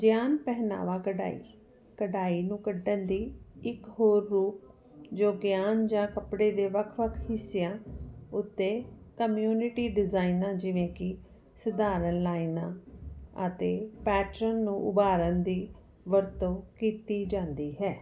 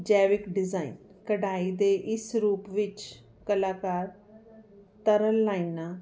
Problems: none marked